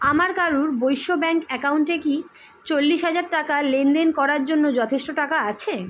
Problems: constant background noise